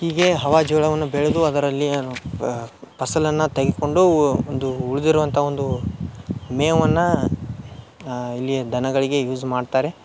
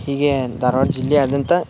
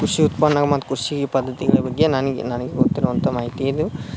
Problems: none marked